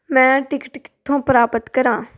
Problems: none marked